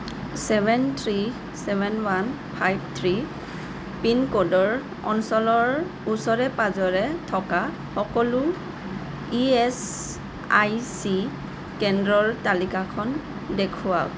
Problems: constant background noise